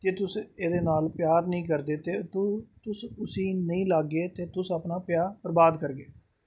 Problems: background sounds at intervals